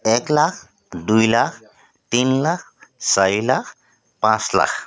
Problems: constant background noise